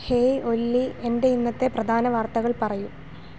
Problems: background sounds at intervals